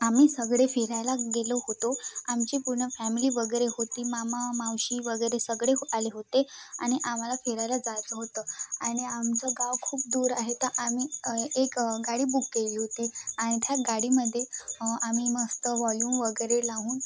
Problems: constant background noise, background conversations at intervals